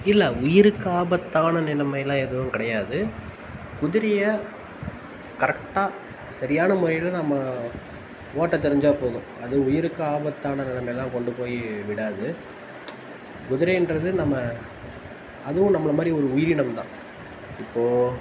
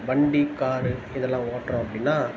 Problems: none marked